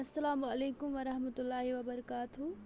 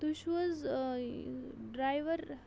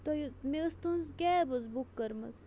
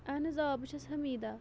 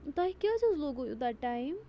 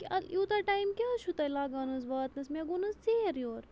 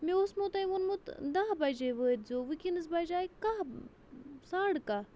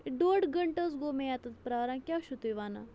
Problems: constant background noise